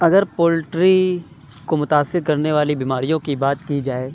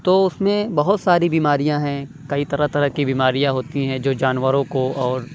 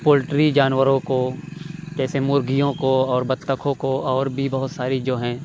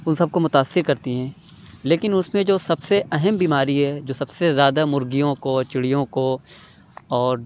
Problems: none marked